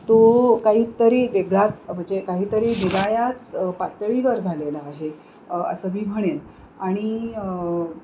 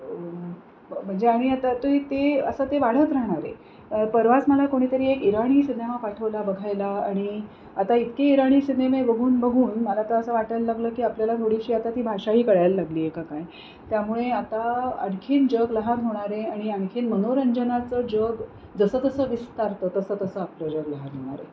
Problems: constant background noise